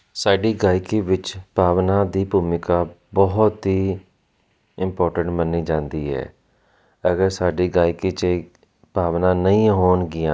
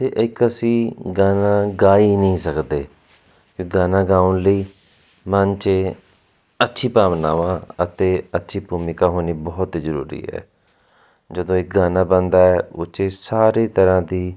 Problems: constant background noise